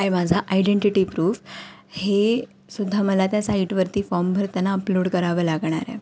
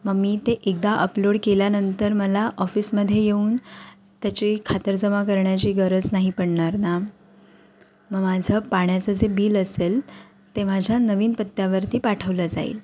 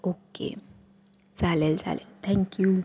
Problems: none marked